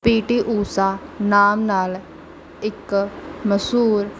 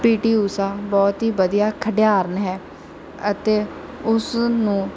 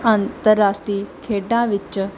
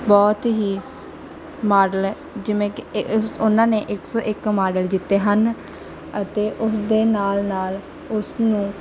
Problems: none marked